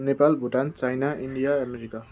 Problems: none marked